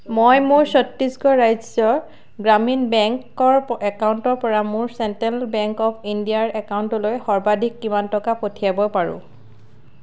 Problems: none marked